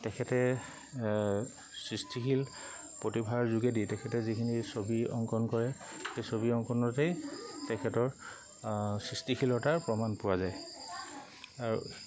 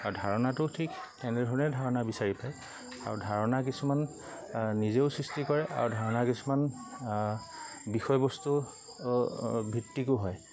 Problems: constant background noise, background conversations at intervals